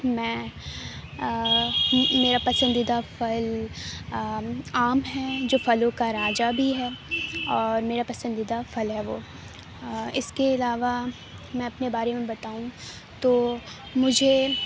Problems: none marked